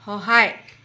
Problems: none marked